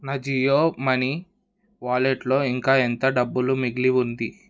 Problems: none marked